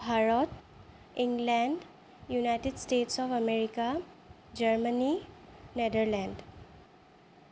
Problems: none marked